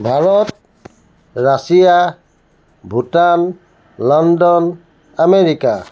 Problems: background sounds at intervals, background conversations at intervals